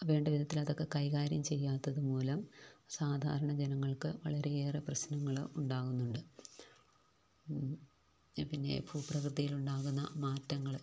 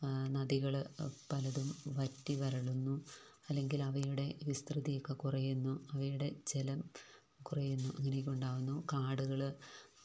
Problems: low volume